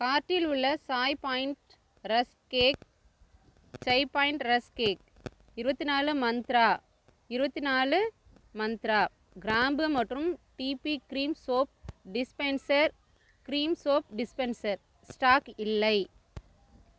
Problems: background sounds at intervals